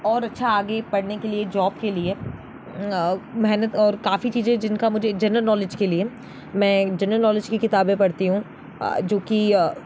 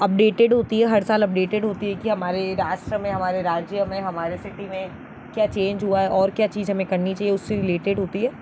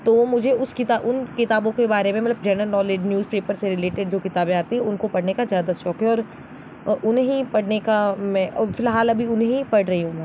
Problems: constant background noise